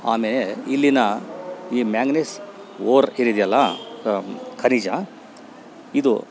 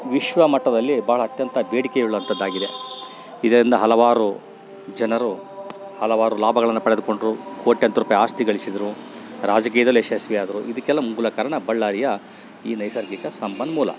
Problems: background sounds at intervals